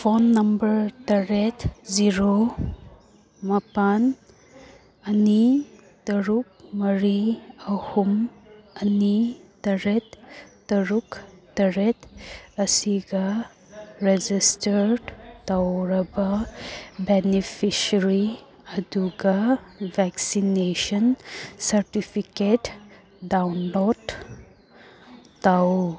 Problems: background conversations at intervals